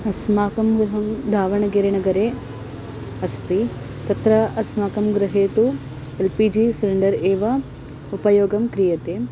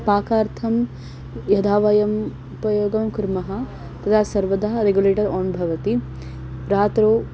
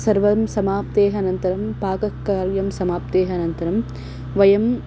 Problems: constant background noise